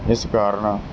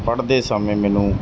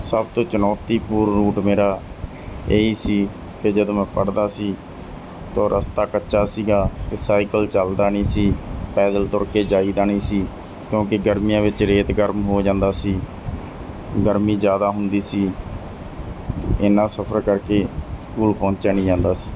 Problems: none marked